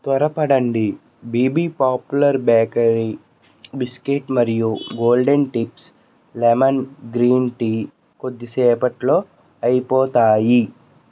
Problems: constant background noise